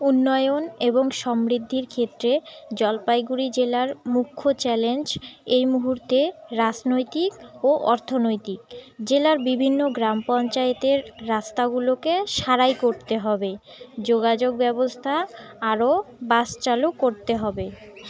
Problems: background sounds at intervals